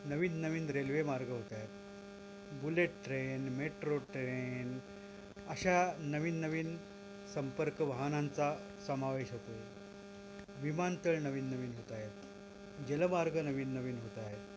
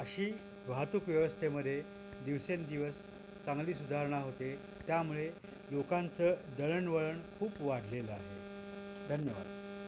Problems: constant background noise